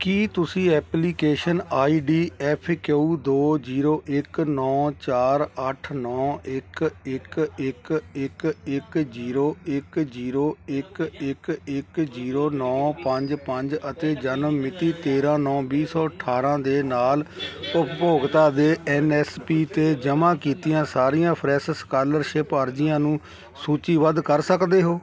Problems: continuous background conversations